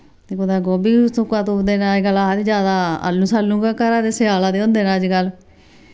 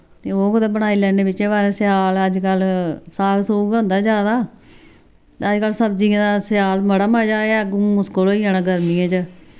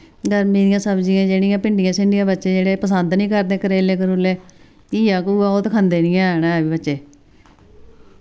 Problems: none marked